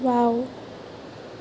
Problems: constant background noise